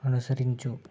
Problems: low volume